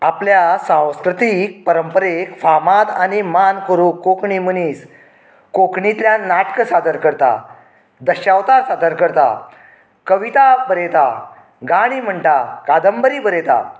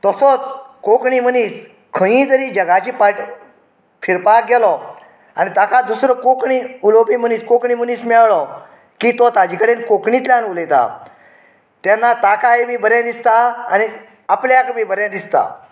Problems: background conversations at intervals